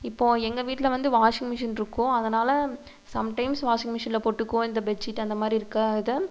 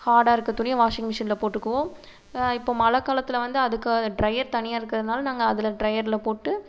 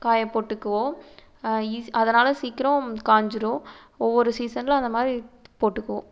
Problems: constant background noise